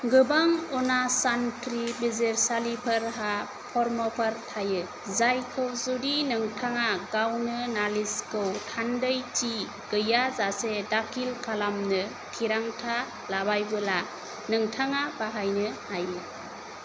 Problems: constant background noise